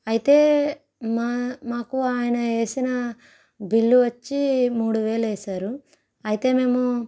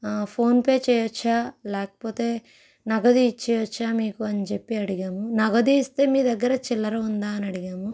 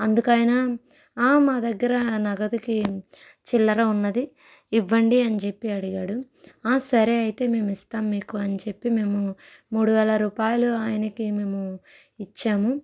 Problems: background sounds at intervals